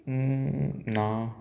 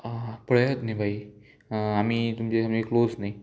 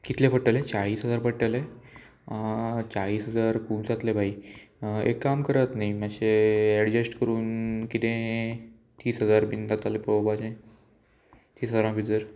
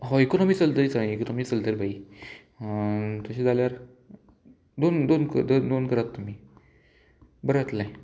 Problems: constant background noise, background conversations at intervals